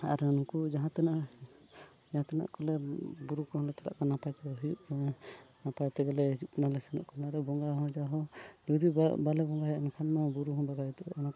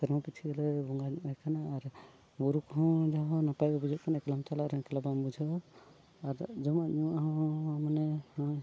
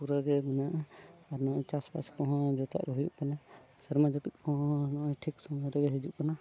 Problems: background sounds at intervals, low volume